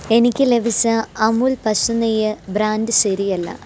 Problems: none marked